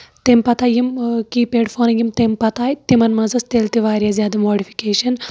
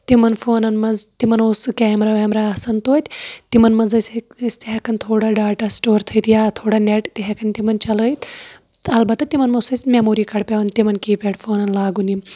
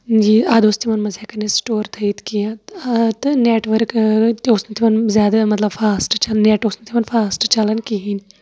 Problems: background conversations at intervals